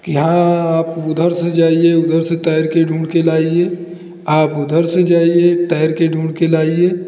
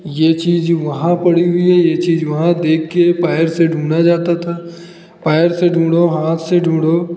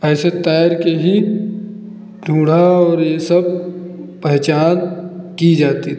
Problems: none marked